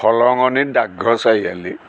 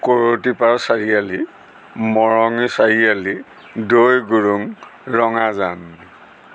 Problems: constant background noise